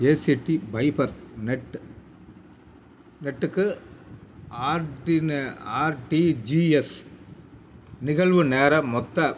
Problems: none marked